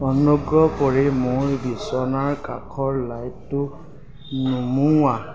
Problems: constant background noise, background conversations at intervals